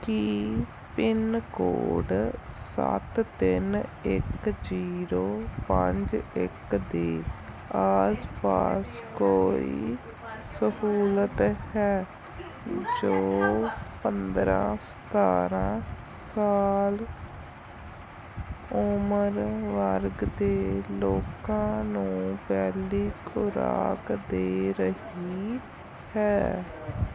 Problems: constant background noise, continuous background conversations